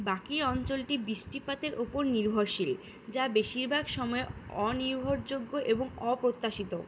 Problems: none marked